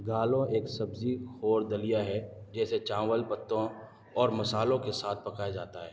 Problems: background sounds at intervals